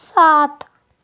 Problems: none marked